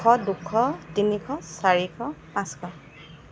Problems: constant background noise